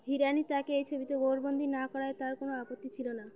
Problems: constant background noise